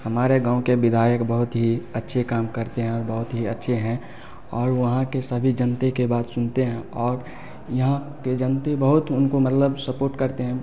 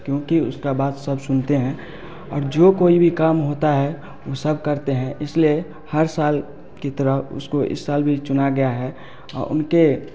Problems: background sounds at intervals